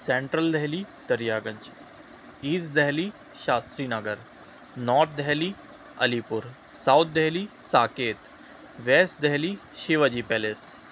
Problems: none marked